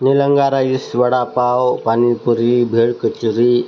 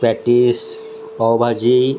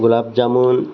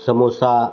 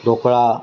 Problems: constant background noise